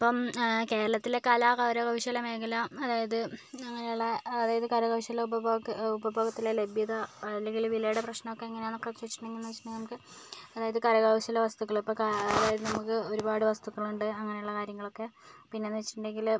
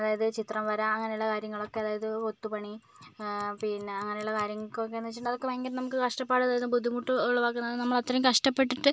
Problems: none marked